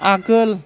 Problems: background sounds at intervals